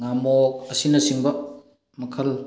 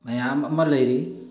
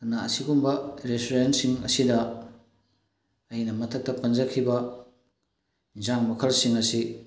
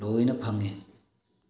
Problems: background sounds at intervals